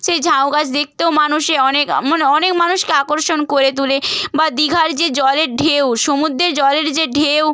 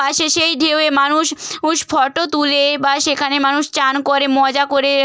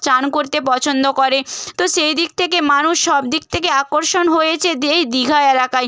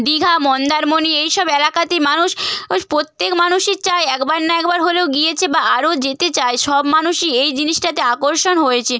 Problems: none marked